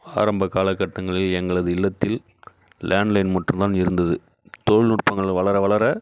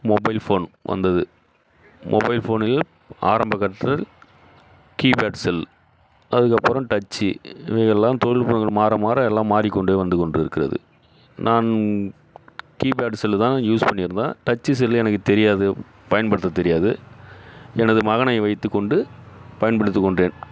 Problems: none marked